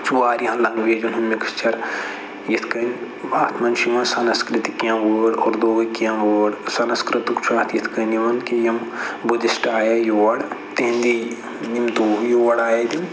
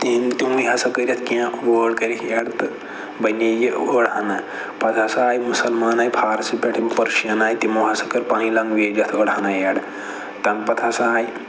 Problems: constant background noise